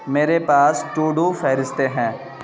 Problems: constant background noise